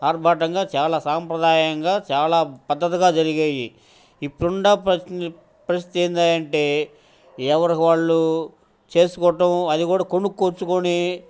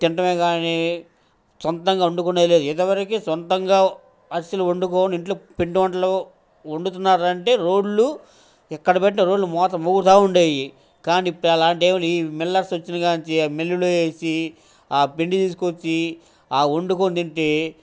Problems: constant background noise, background conversations at intervals